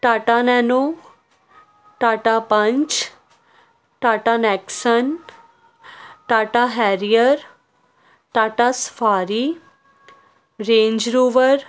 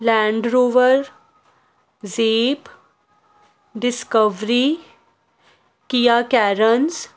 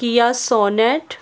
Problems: none marked